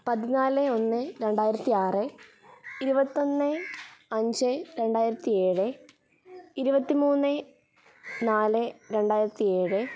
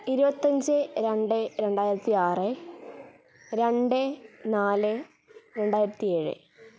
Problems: background sounds at intervals